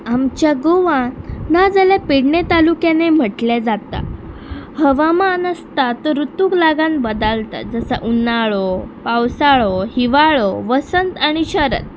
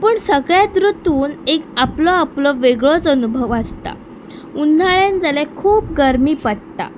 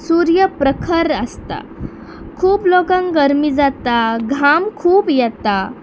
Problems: constant background noise